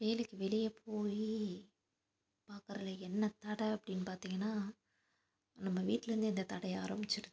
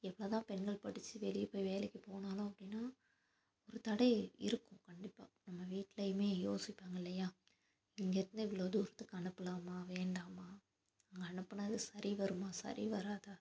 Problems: constant background noise